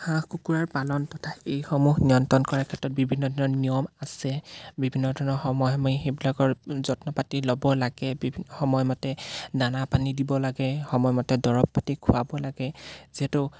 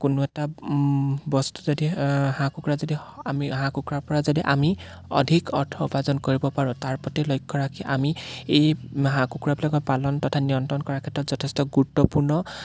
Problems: background sounds at intervals